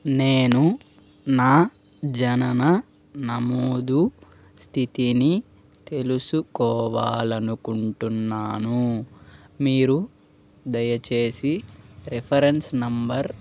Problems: background sounds at intervals